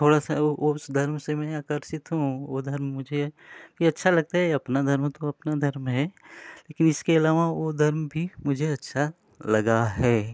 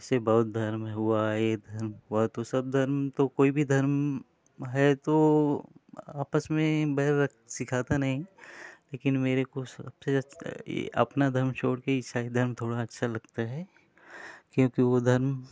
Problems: background sounds at intervals